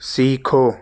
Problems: constant background noise